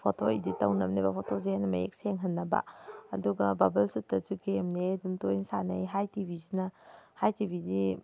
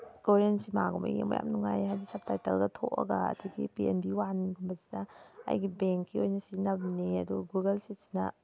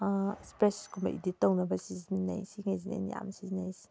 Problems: background sounds at intervals